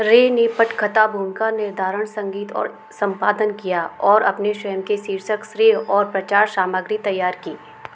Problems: constant background noise